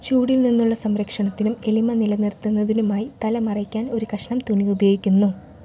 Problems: low volume